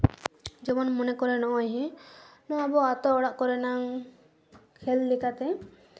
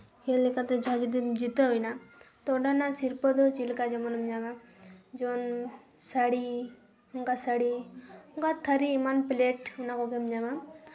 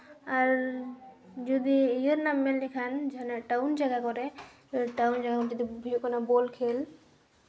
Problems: none marked